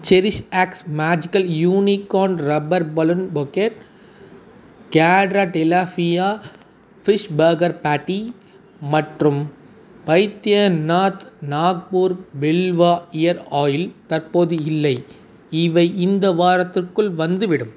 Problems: none marked